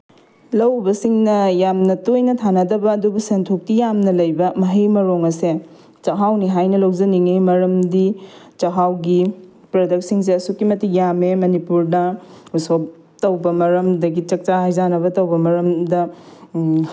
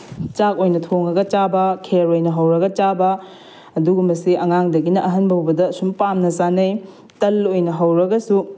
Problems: none marked